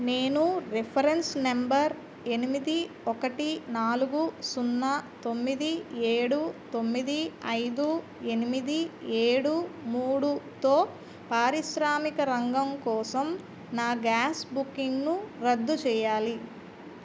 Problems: none marked